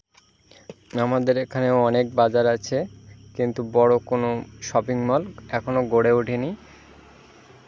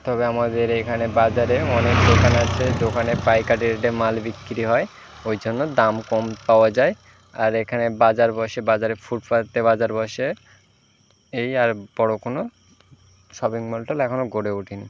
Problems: none marked